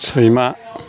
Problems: constant background noise